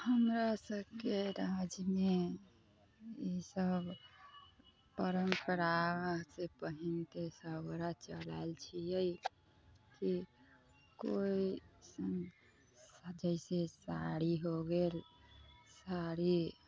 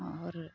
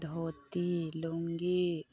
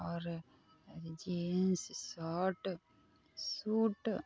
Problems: constant background noise, continuous background conversations